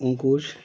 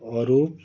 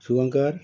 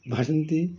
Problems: background sounds at intervals